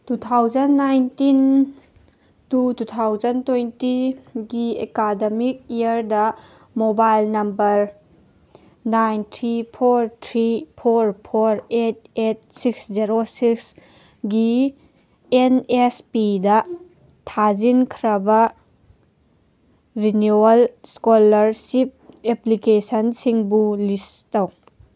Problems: none marked